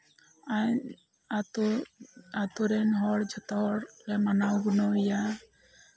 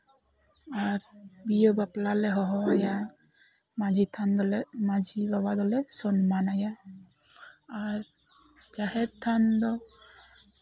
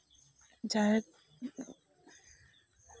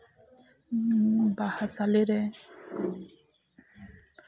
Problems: low volume